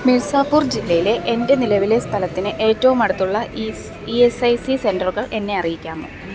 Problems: constant background noise